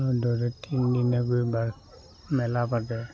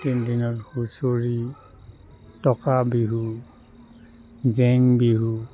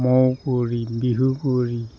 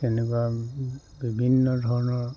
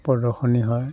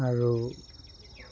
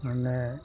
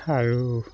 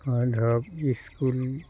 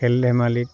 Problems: constant background noise, background conversations at intervals, low volume